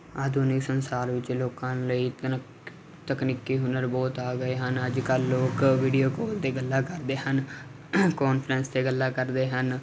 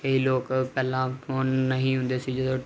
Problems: constant background noise